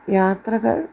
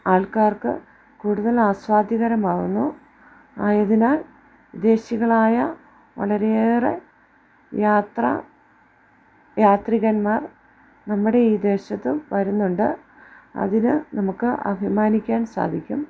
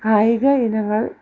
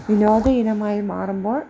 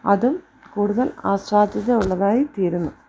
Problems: none marked